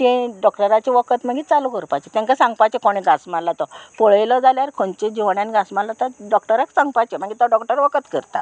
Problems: constant background noise